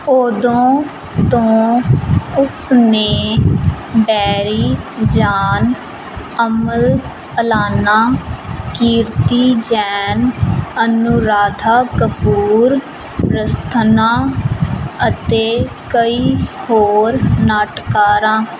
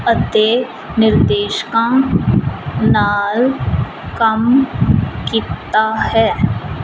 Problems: constant background noise